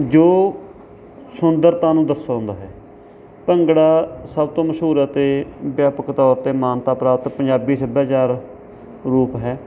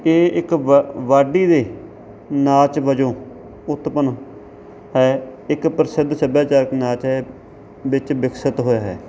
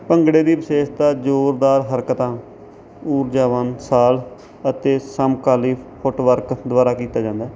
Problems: none marked